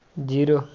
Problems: background sounds at intervals